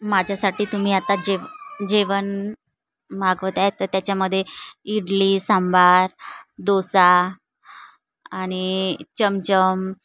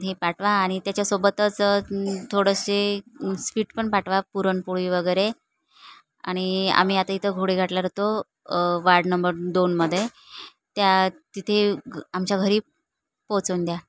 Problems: none marked